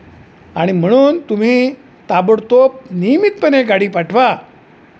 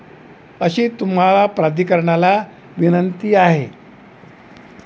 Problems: none marked